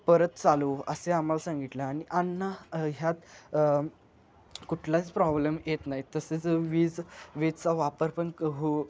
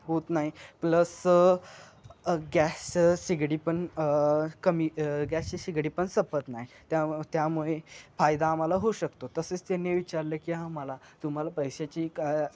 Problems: background sounds at intervals